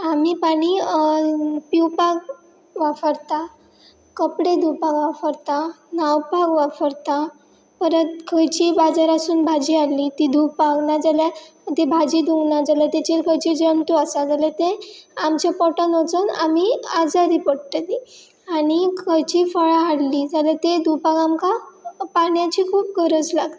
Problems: none marked